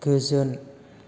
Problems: background sounds at intervals